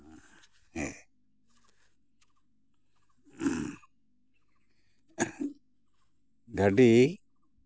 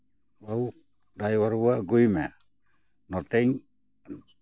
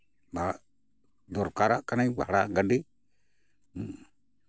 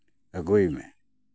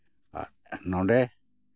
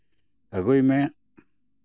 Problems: background sounds at intervals